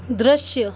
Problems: constant background noise